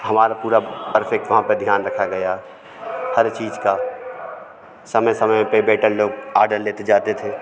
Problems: constant background noise, continuous background conversations